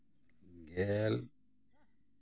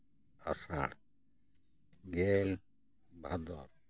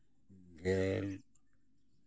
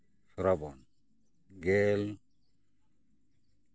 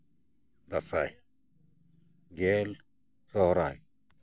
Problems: constant background noise, background conversations at intervals